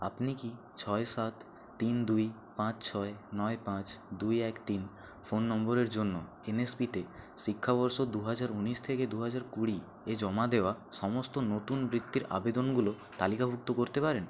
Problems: background sounds at intervals